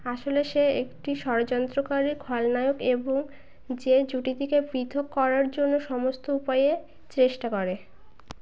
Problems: background sounds at intervals